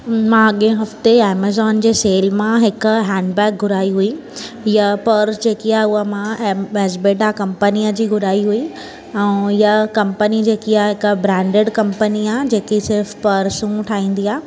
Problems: constant background noise